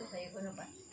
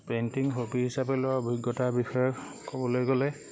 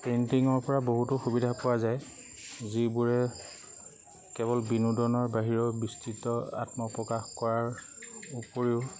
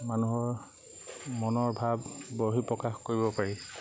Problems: constant background noise